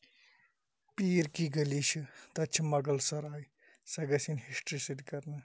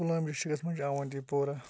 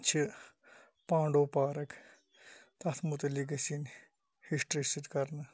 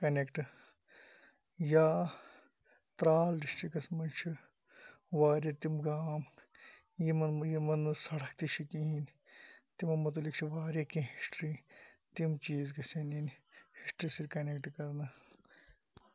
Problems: low volume